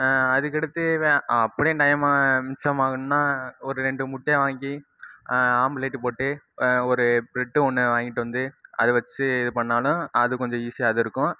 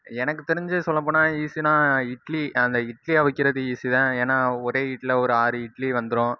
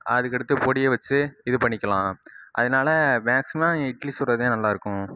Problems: none marked